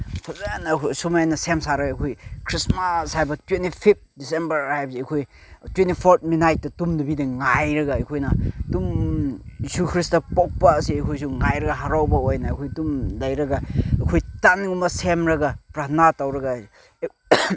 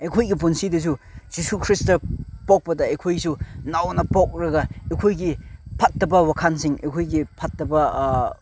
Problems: background sounds at intervals